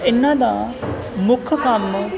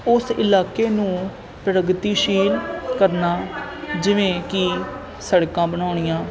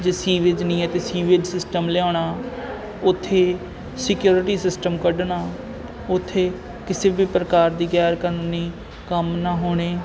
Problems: constant background noise